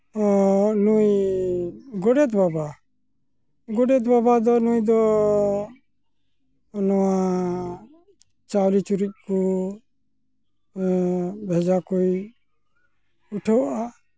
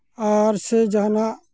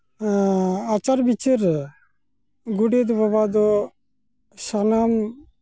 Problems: none marked